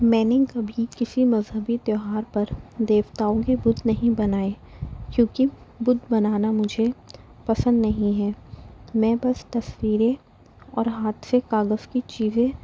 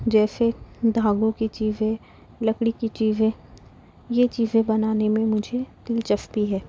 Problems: constant background noise